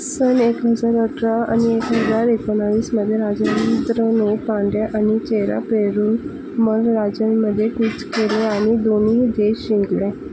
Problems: constant background noise, low volume